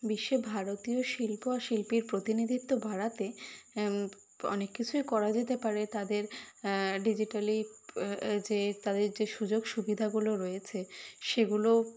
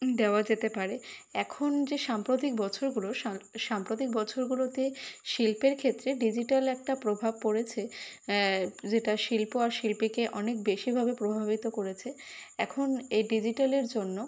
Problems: none marked